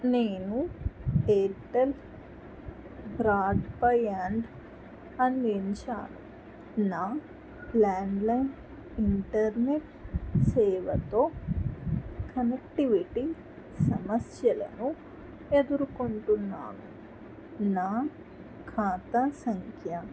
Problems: constant background noise